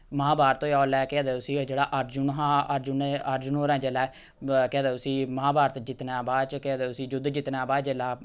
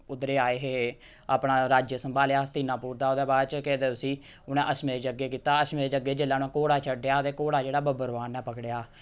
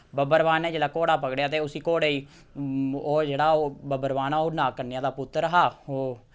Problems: none marked